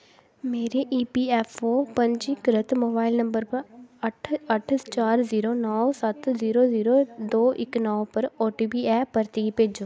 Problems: background conversations at intervals